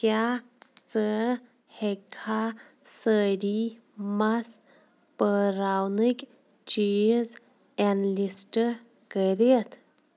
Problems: background sounds at intervals